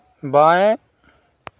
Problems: none marked